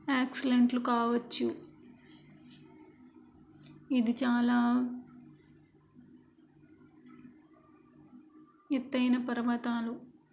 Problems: constant background noise